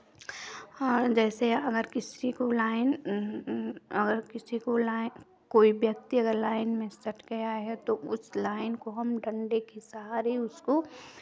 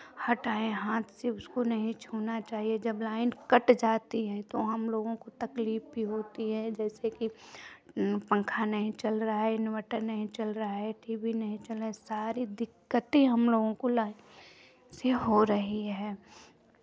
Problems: constant background noise